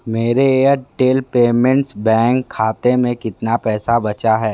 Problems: none marked